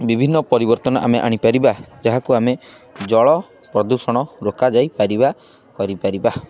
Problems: none marked